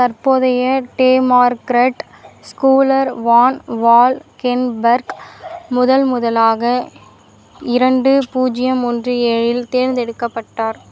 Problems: constant background noise